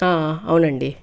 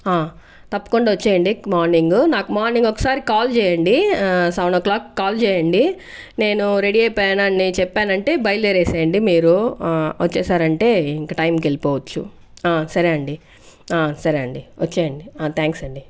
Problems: background sounds at intervals